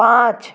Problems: none marked